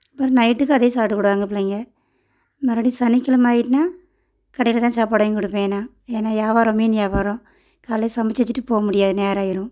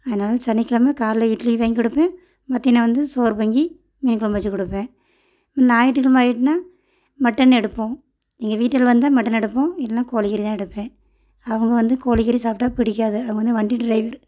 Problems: none marked